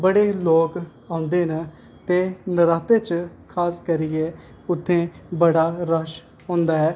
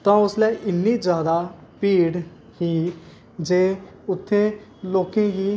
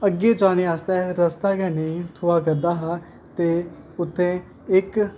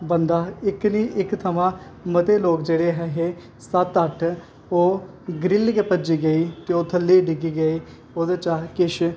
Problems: constant background noise